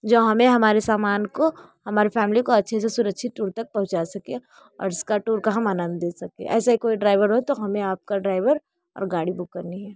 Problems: none marked